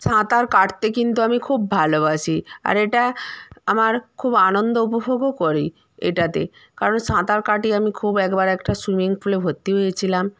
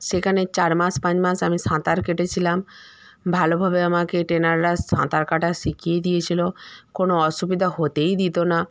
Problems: constant background noise